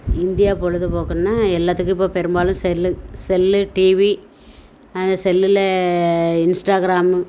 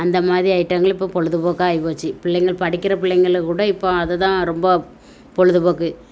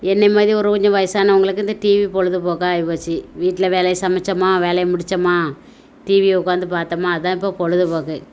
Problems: constant background noise